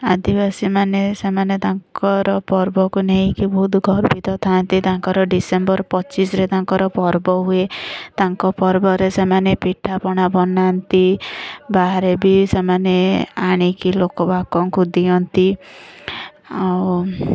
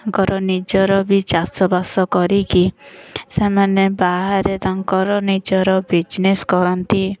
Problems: none marked